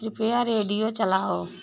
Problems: background sounds at intervals